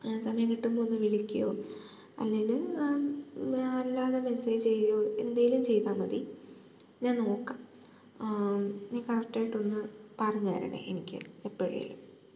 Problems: low volume